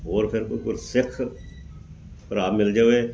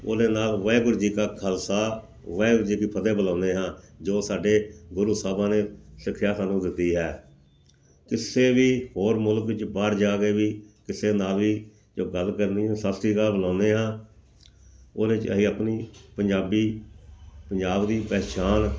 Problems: background sounds at intervals